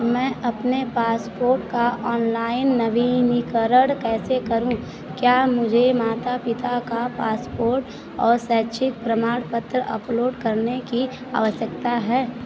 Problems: none marked